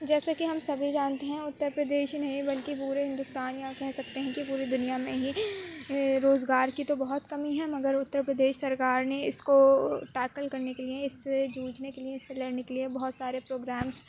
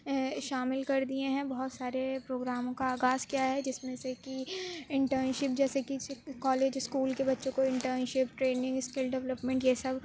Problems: low volume